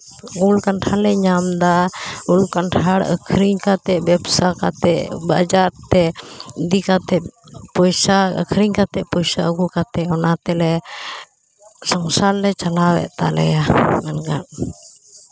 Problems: background conversations at intervals